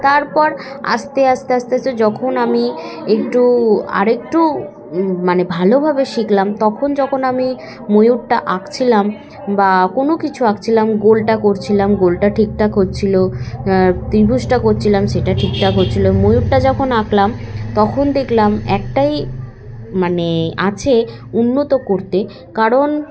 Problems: constant background noise, continuous background conversations